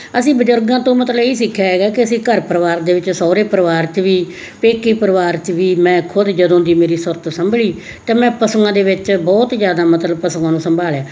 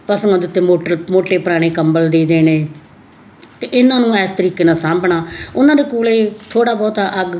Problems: none marked